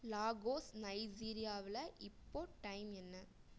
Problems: low volume